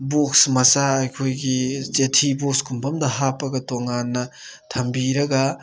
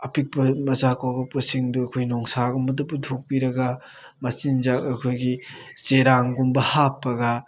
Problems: none marked